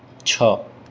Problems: constant background noise